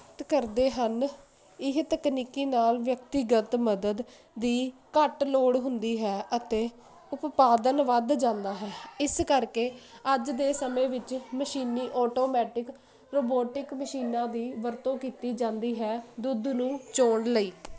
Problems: none marked